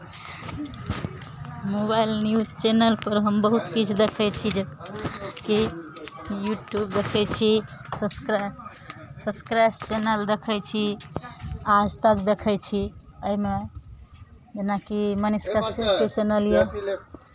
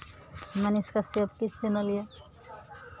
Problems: background conversations at intervals